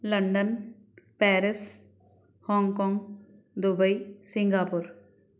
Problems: none marked